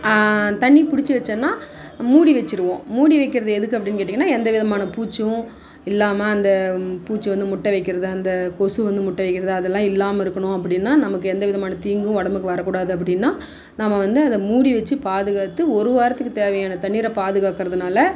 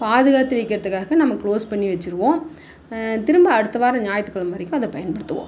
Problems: none marked